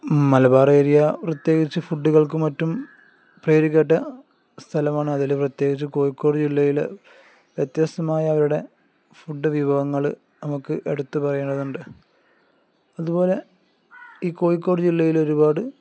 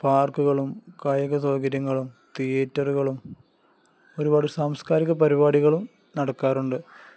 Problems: none marked